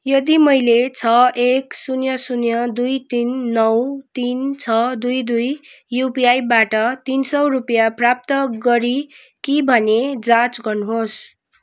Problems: none marked